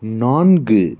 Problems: constant background noise